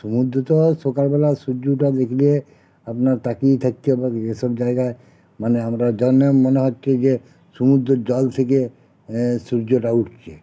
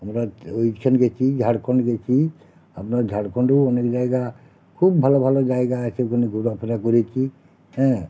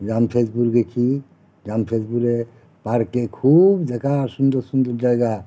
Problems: constant background noise